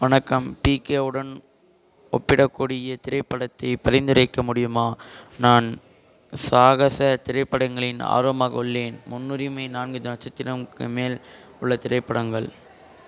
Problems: constant background noise